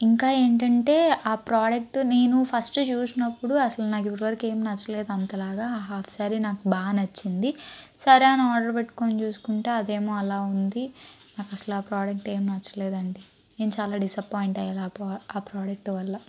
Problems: background sounds at intervals